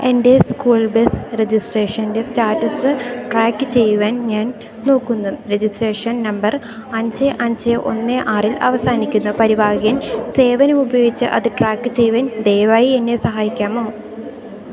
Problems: continuous background conversations